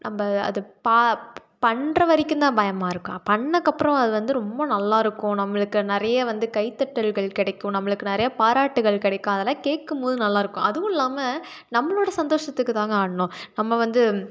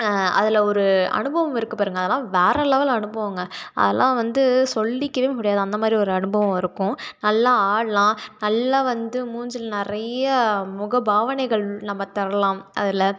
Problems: none marked